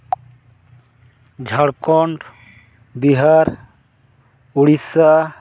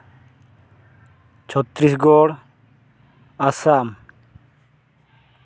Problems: none marked